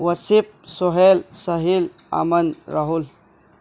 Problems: constant background noise